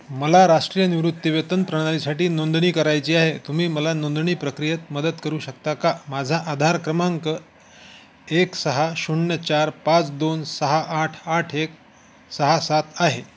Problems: constant background noise